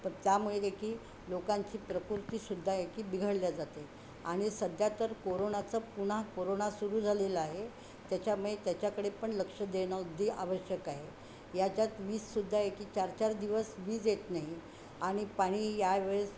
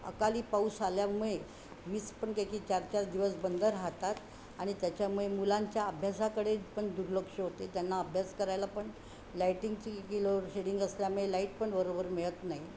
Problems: constant background noise